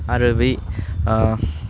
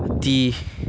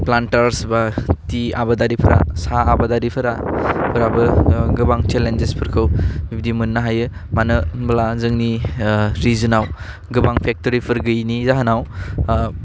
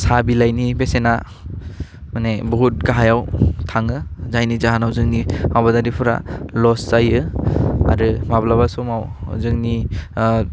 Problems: none marked